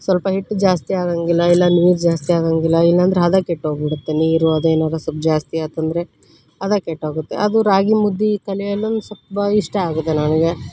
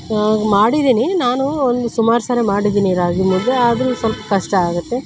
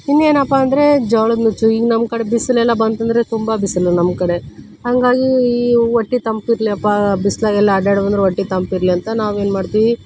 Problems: background sounds at intervals